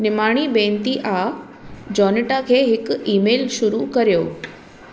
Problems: constant background noise